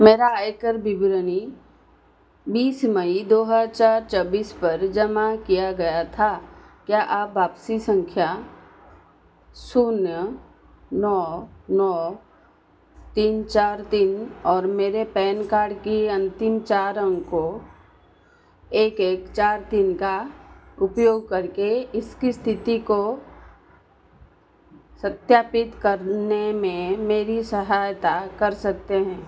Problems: constant background noise